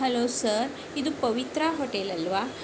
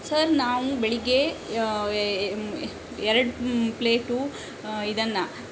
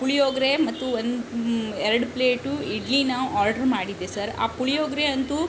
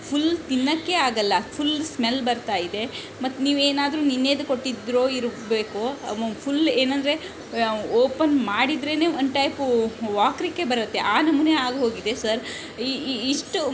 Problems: background sounds at intervals